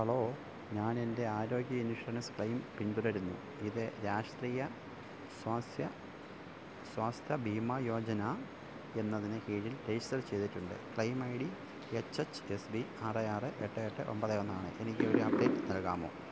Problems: low volume